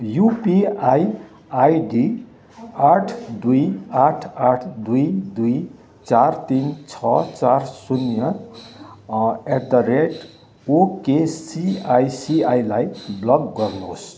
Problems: constant background noise, continuous background conversations